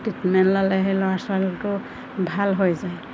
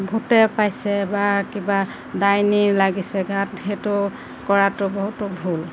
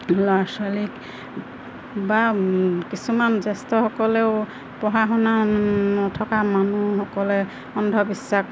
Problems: constant background noise